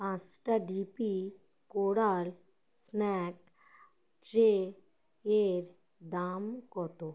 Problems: none marked